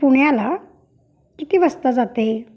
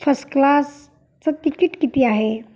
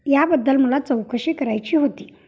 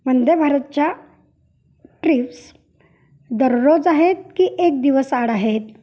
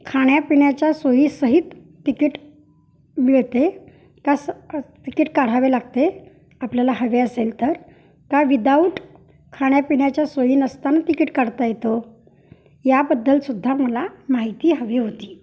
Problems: background sounds at intervals